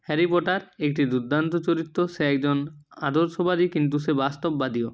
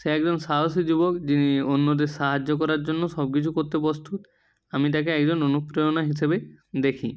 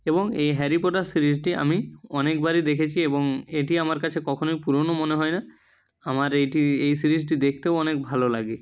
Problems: none marked